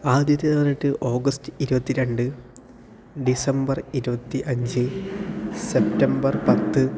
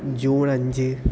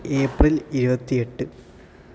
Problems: constant background noise